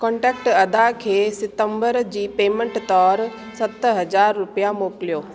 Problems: constant background noise